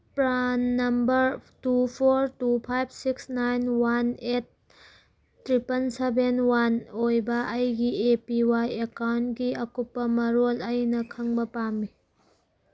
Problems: none marked